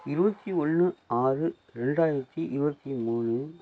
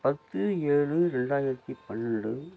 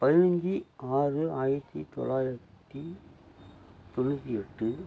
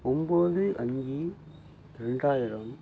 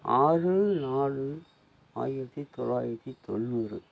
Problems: constant background noise